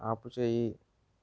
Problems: low volume